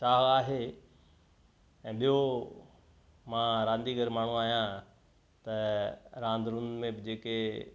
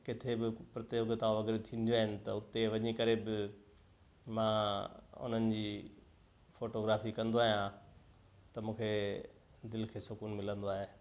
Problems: constant background noise, echo